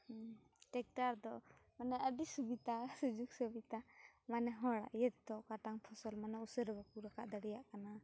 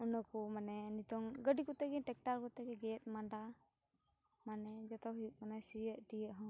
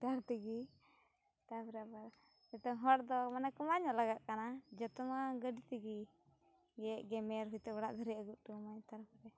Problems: low volume